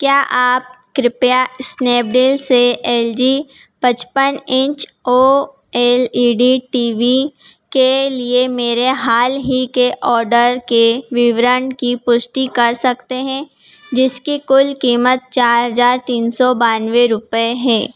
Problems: background sounds at intervals